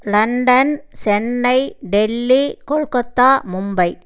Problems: none marked